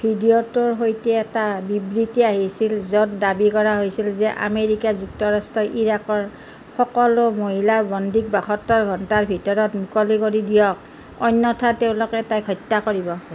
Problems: constant background noise